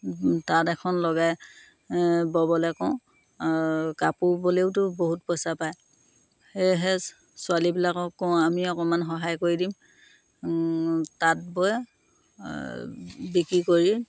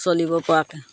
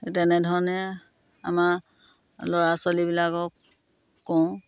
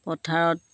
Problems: constant background noise